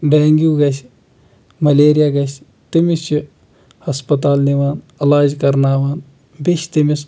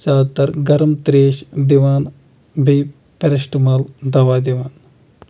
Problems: none marked